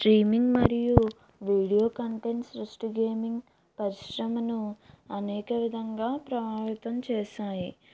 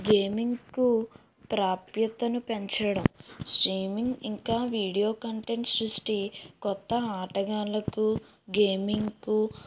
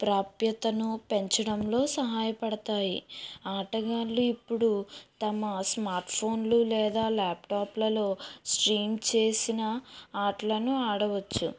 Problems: low volume